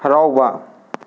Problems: constant background noise, echo